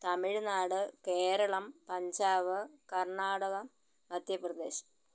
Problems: low volume